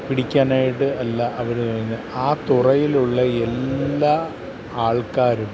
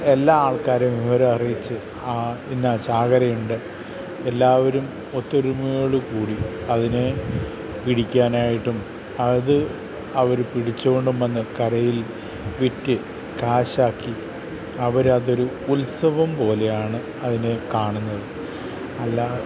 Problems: constant background noise